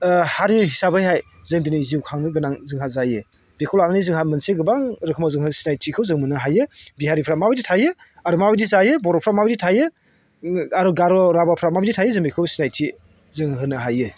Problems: constant background noise